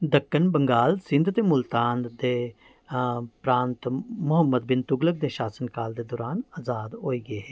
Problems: none marked